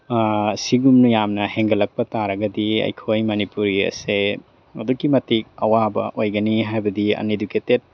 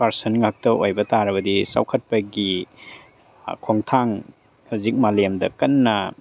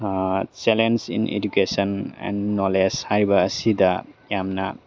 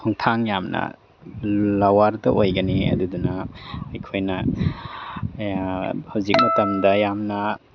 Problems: none marked